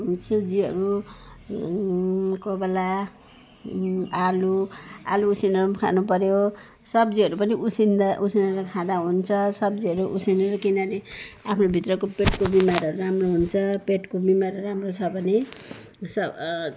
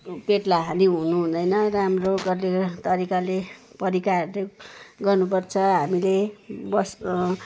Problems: none marked